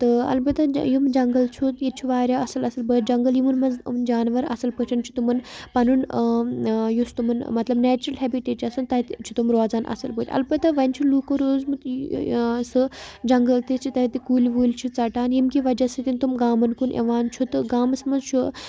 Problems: constant background noise